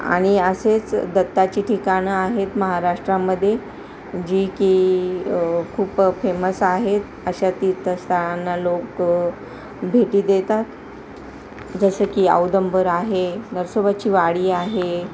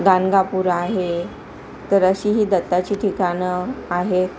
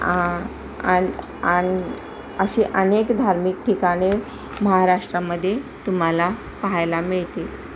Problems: constant background noise, continuous background conversations